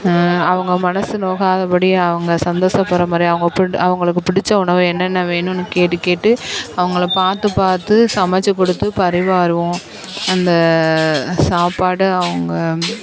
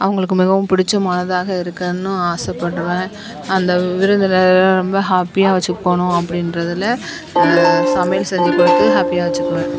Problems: constant background noise, background conversations at intervals